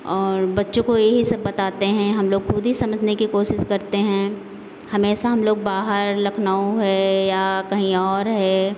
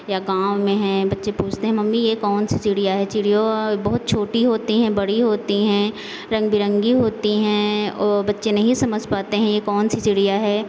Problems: constant background noise